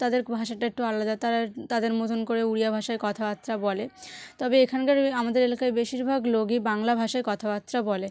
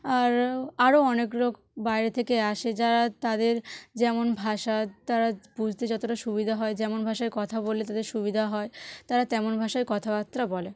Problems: none marked